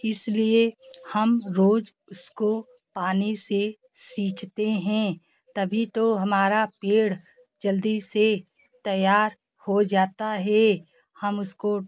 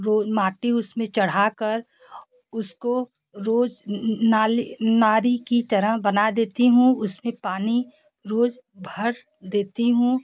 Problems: background sounds at intervals, background conversations at intervals